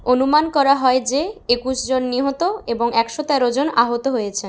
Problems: none marked